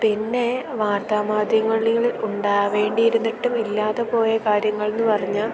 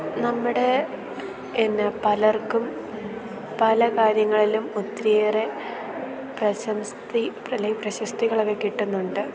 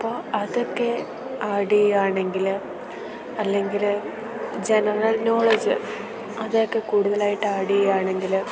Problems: constant background noise